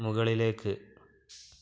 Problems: background sounds at intervals